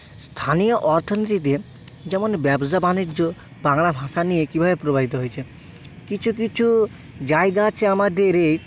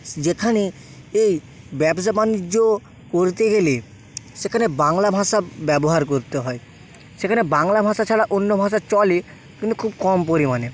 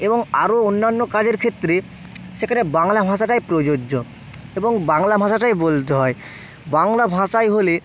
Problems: constant background noise